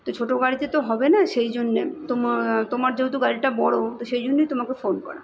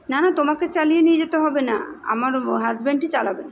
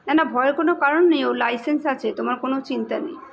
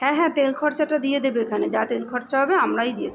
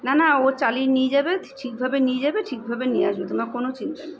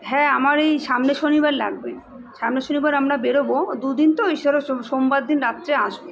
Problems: none marked